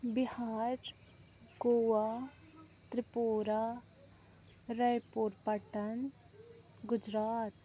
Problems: constant background noise